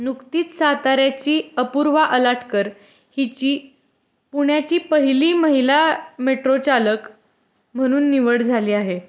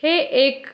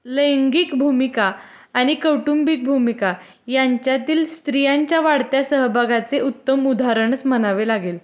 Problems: constant background noise, background conversations at intervals